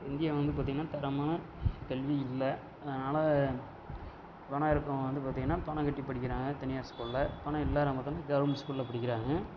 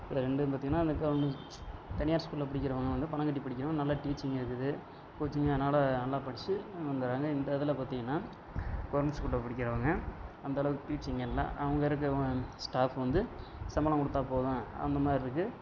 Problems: background sounds at intervals, background conversations at intervals